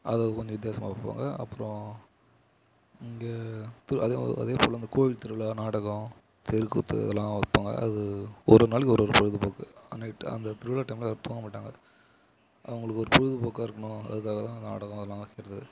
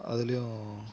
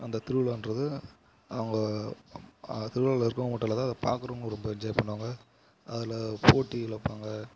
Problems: low volume